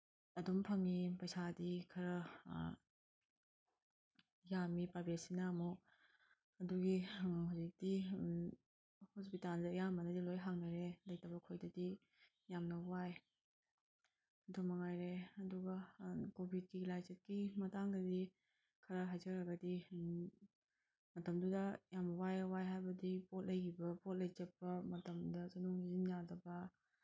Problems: background sounds at intervals